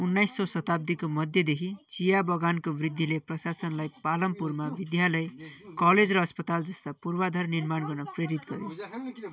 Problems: continuous background conversations